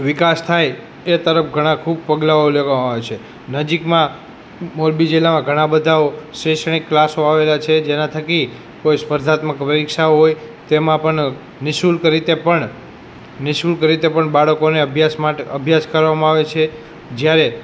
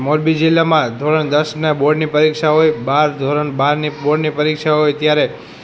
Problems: background conversations at intervals